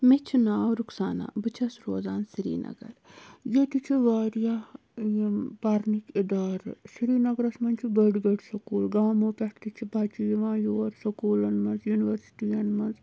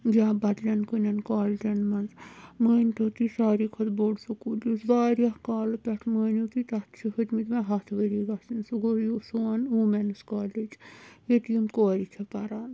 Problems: none marked